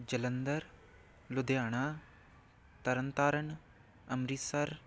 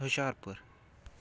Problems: background sounds at intervals